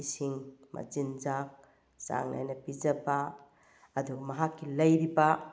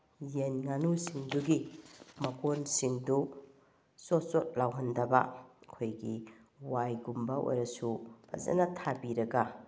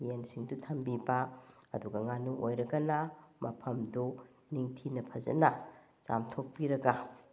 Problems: none marked